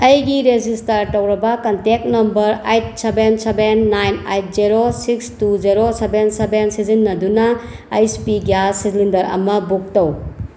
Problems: background sounds at intervals